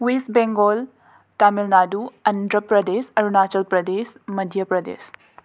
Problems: none marked